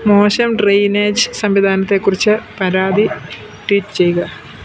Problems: none marked